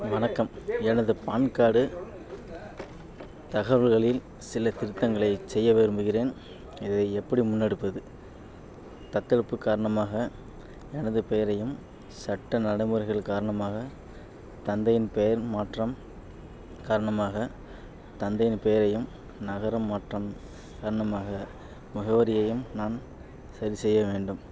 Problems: background sounds at intervals